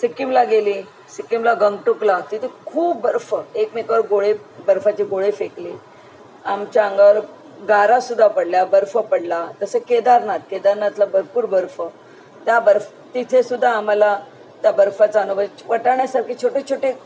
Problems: none marked